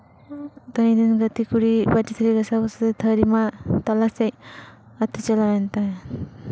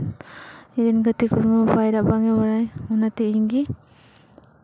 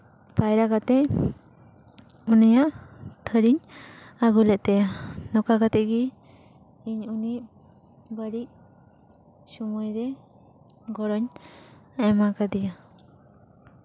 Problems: none marked